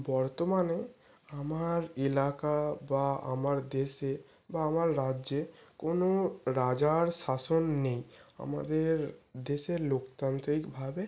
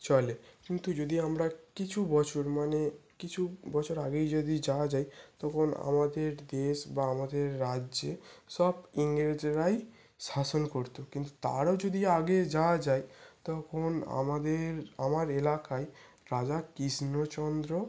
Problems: background sounds at intervals